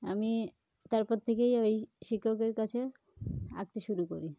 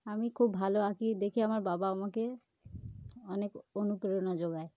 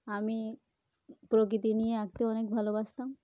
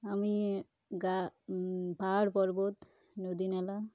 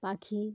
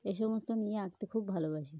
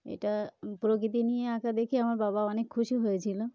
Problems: background sounds at intervals